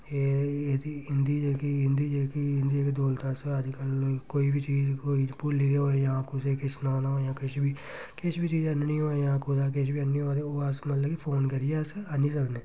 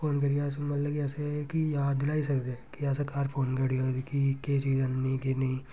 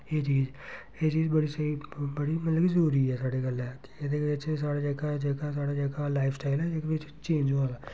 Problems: none marked